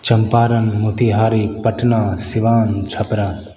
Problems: none marked